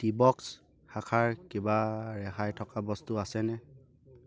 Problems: none marked